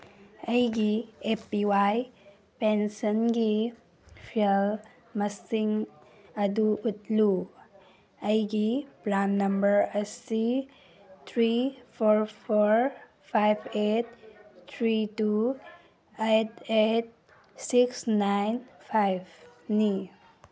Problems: background sounds at intervals